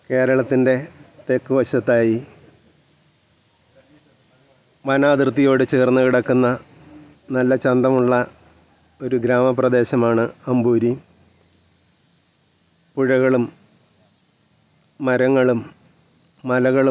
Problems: none marked